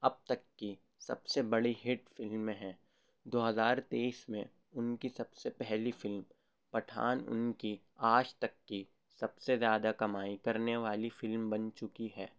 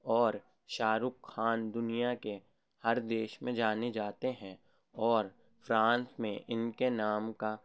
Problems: none marked